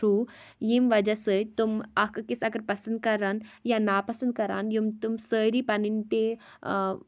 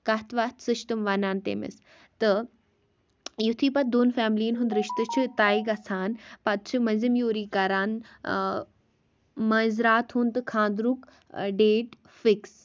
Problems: background sounds at intervals